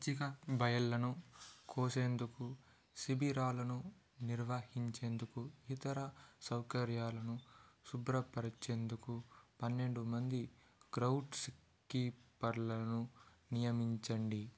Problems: low volume